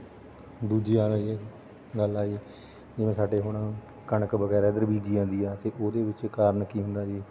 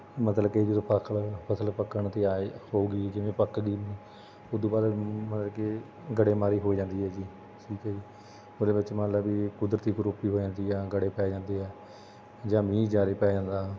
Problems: constant background noise